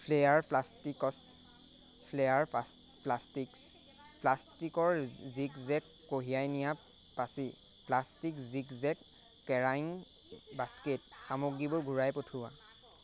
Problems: none marked